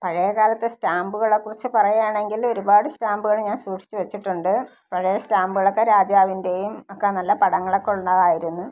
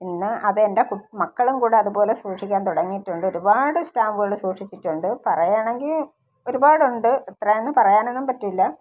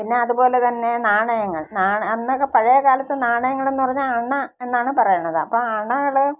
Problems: none marked